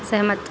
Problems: constant background noise